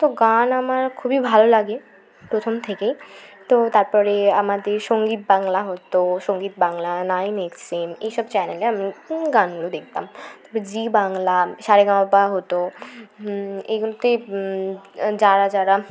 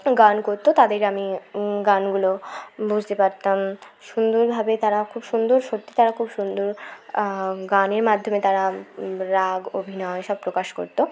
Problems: continuous background conversations